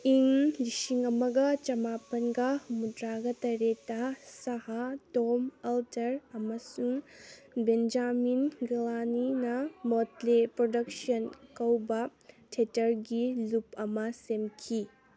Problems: background conversations at intervals